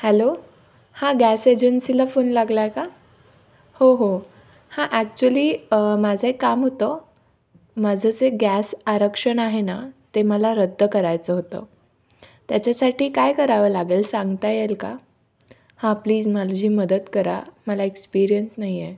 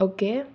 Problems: none marked